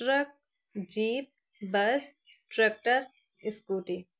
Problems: none marked